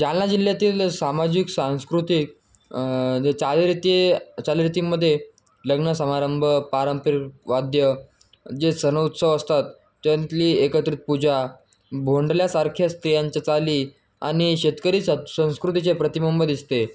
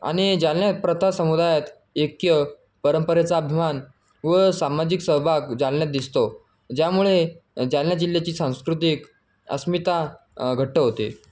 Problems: background sounds at intervals